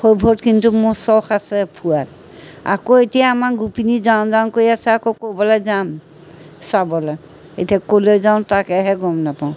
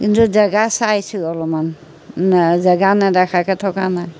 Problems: none marked